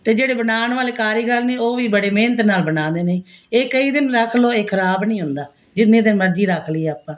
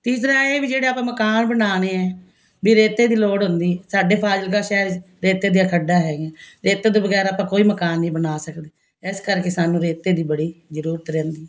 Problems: constant background noise